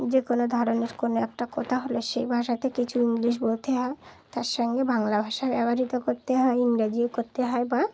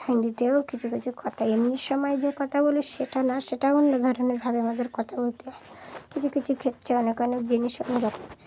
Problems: constant background noise